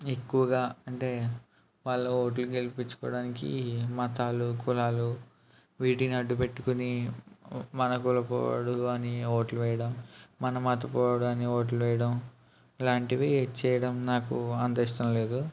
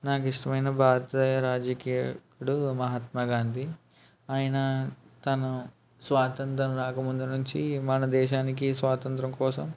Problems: none marked